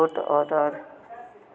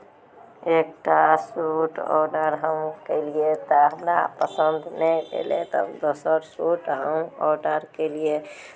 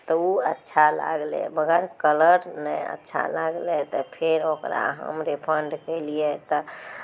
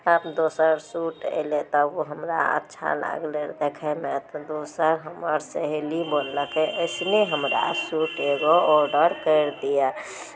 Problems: background sounds at intervals